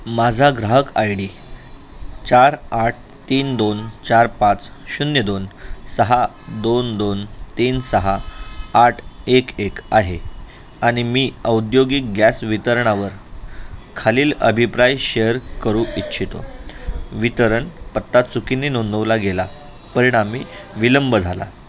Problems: constant background noise, continuous background conversations